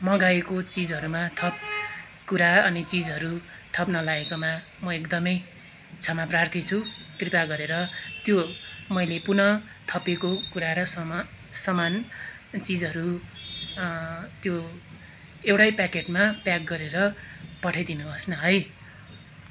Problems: constant background noise, continuous background conversations